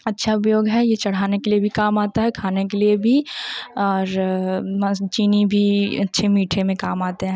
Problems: none marked